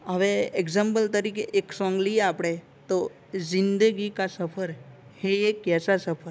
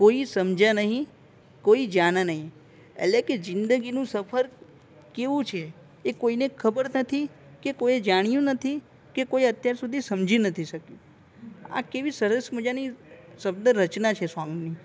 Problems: none marked